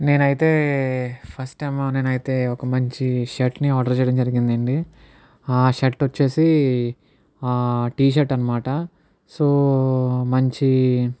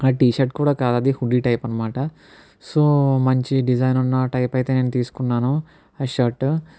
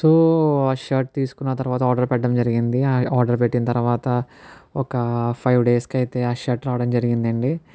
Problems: none marked